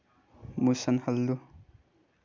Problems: low volume